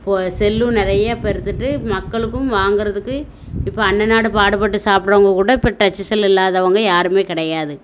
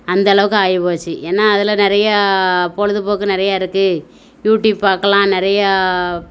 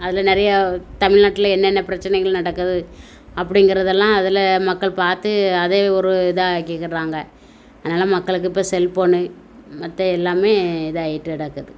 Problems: constant background noise